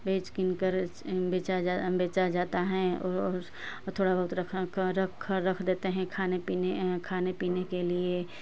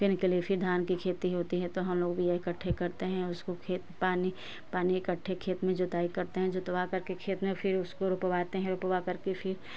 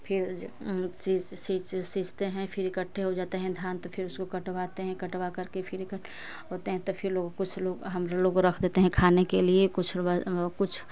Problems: constant background noise